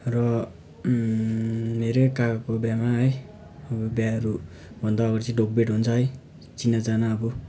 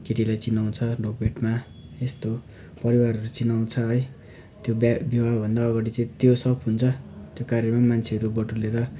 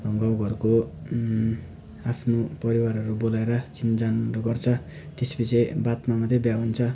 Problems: background sounds at intervals